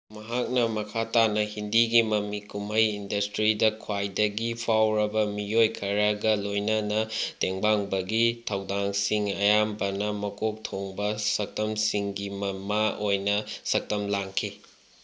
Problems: low volume